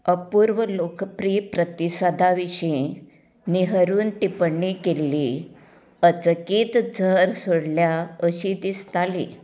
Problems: constant background noise